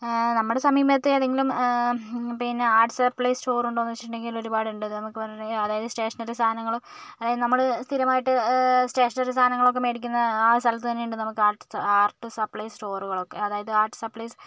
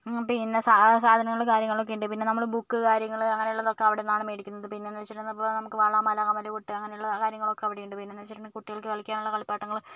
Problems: none marked